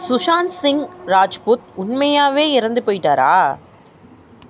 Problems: constant background noise